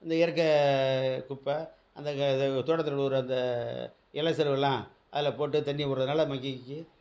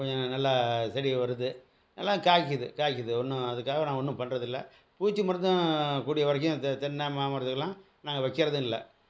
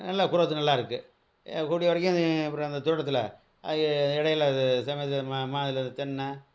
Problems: none marked